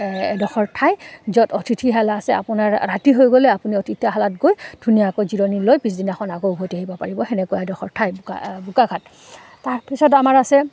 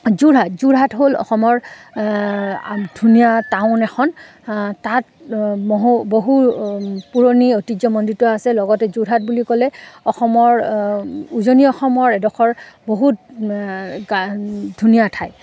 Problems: none marked